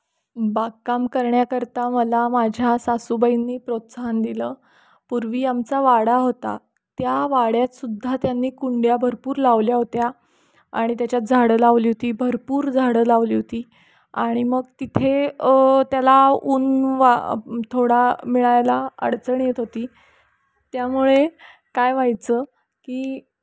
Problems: background sounds at intervals